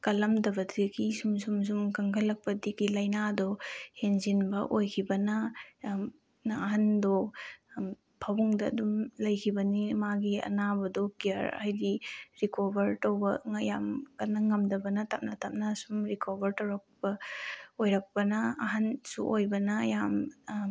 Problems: none marked